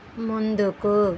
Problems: constant background noise